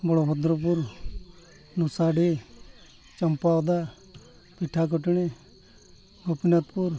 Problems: none marked